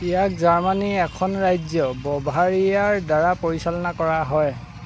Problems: constant background noise